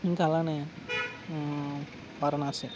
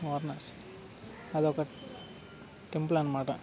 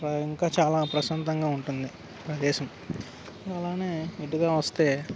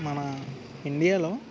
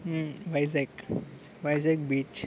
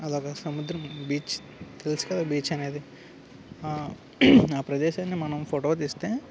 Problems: constant background noise